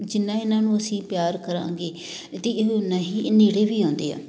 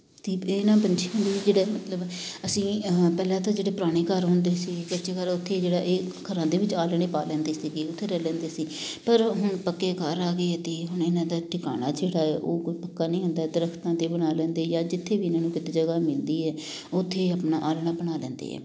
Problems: background sounds at intervals